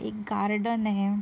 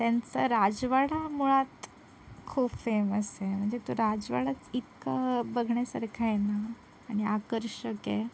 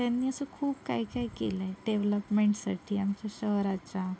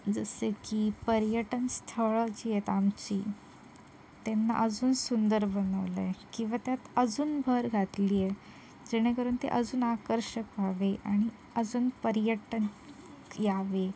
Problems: none marked